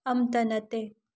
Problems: low volume